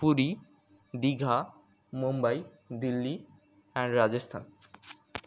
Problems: background sounds at intervals